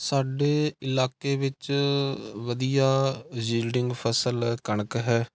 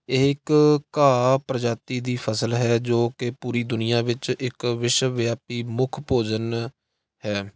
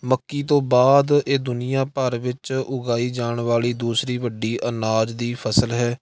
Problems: none marked